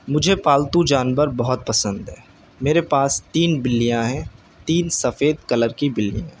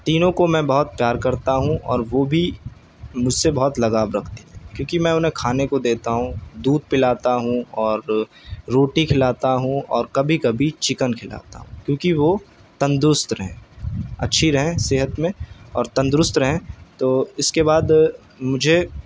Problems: none marked